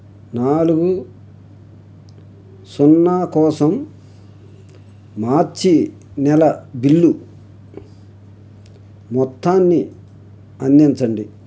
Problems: none marked